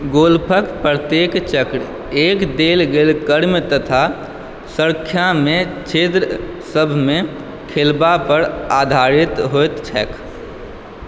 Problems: background sounds at intervals